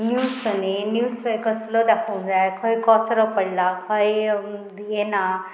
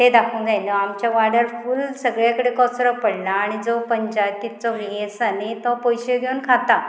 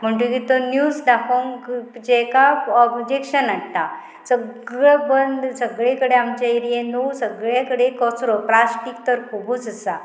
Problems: constant background noise